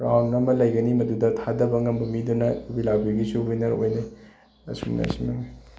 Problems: background sounds at intervals